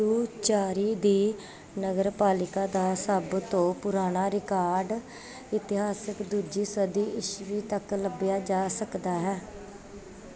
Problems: background sounds at intervals